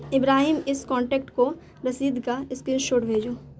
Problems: constant background noise